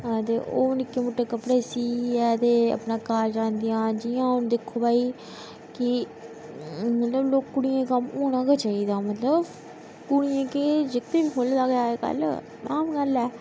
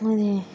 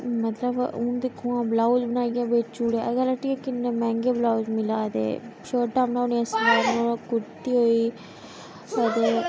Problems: constant background noise, echo